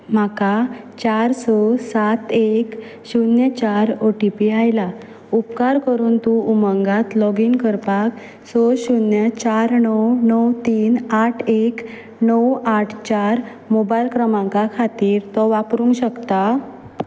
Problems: background sounds at intervals